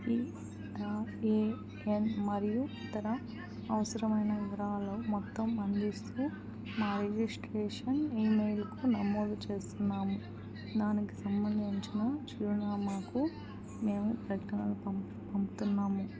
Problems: constant background noise